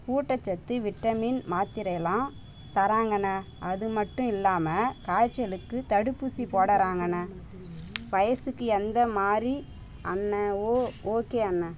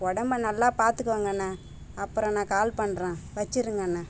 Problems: background sounds at intervals